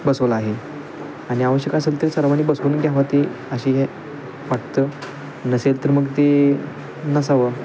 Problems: constant background noise